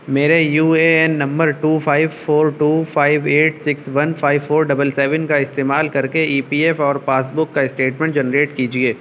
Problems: constant background noise